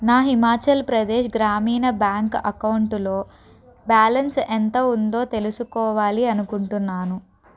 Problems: constant background noise, background conversations at intervals